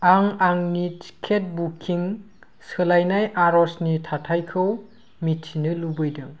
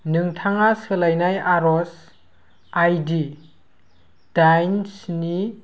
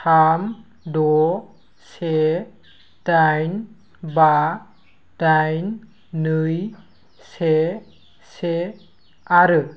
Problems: constant background noise